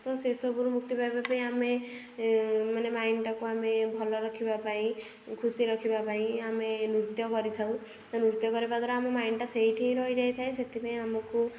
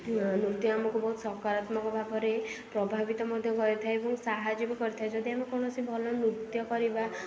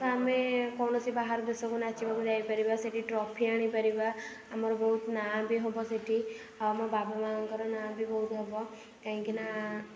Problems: none marked